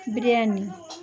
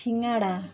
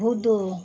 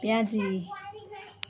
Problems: continuous background conversations